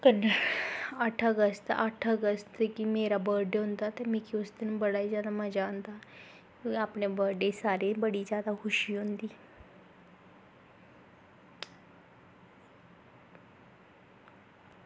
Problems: constant background noise